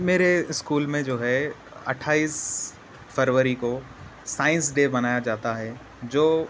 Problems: constant background noise